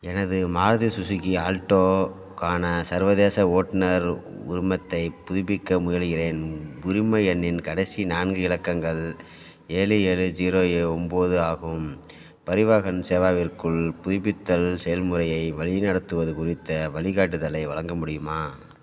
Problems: none marked